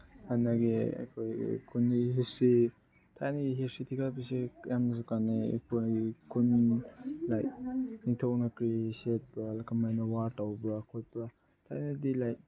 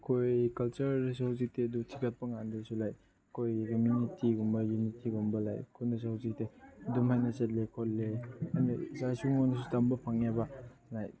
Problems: background sounds at intervals, background conversations at intervals